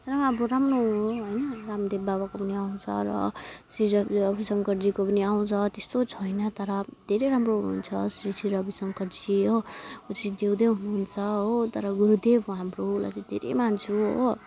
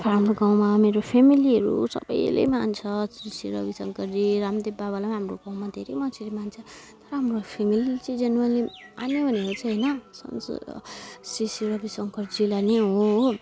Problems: constant background noise